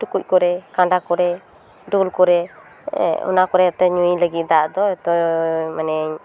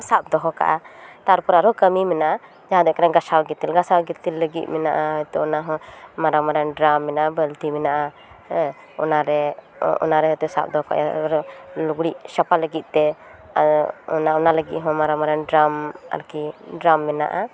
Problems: background sounds at intervals